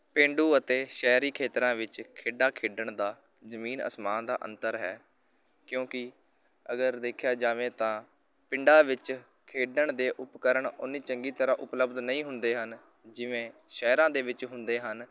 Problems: none marked